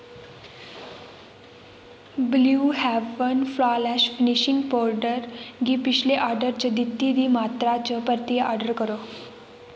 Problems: constant background noise, echo